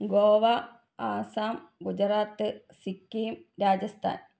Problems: none marked